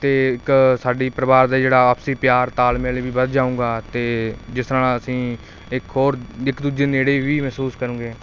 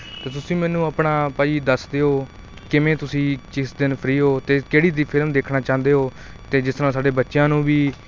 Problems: constant background noise